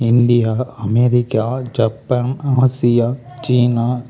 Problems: constant background noise, continuous background conversations